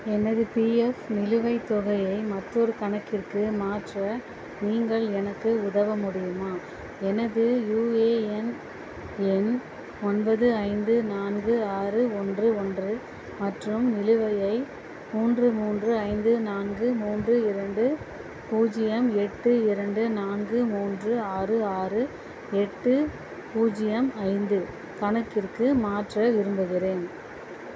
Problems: constant background noise